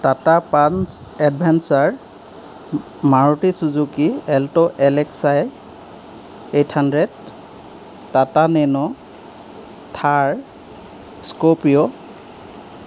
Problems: background sounds at intervals